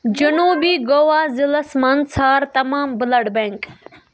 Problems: background conversations at intervals